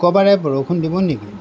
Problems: constant background noise